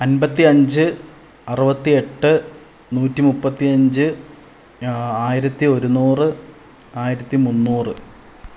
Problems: low volume